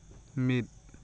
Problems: constant background noise